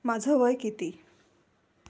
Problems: background sounds at intervals